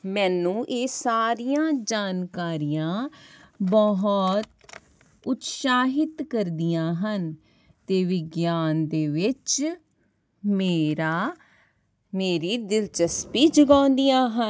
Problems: background sounds at intervals